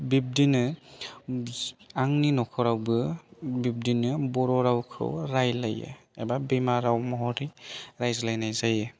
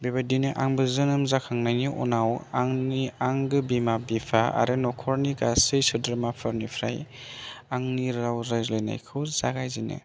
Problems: none marked